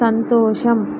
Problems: constant background noise